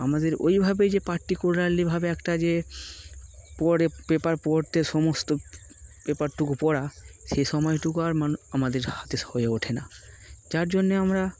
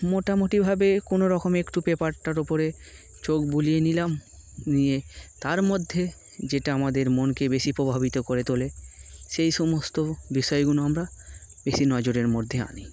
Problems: none marked